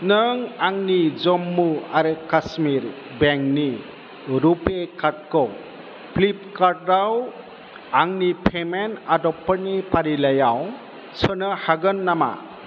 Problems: constant background noise